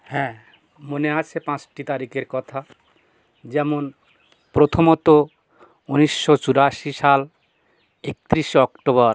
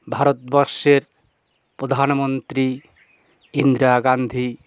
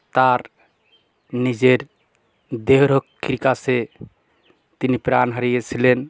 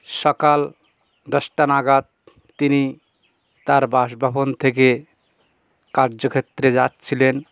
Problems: constant background noise